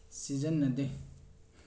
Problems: low volume